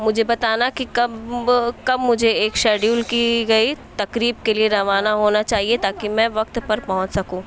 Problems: background sounds at intervals